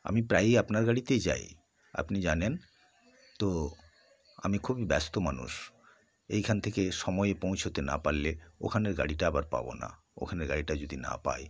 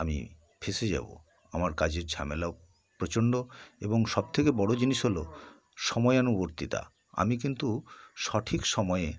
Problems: background sounds at intervals